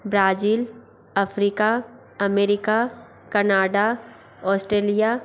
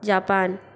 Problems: constant background noise